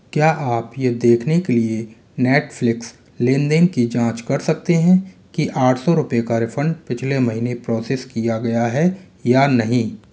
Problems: constant background noise